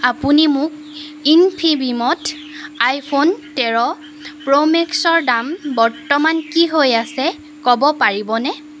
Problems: none marked